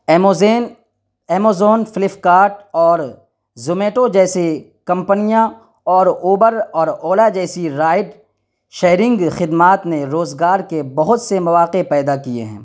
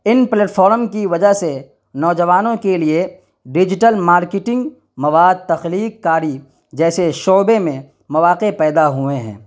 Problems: none marked